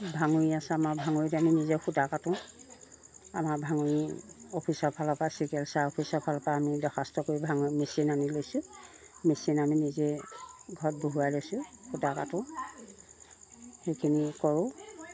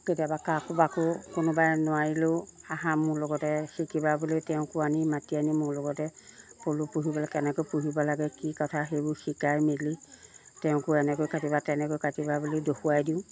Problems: constant background noise